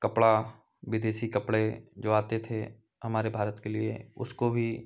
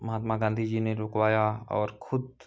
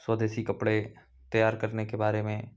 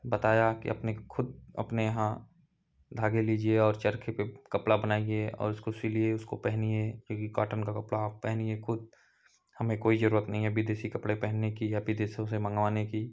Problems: none marked